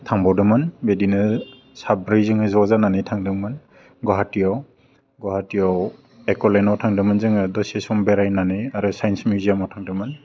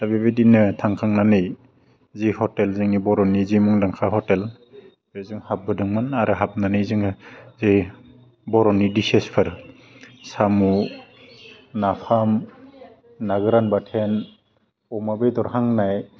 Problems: constant background noise